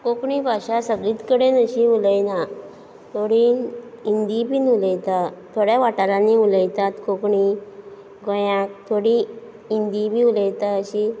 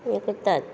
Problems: background sounds at intervals